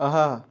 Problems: background sounds at intervals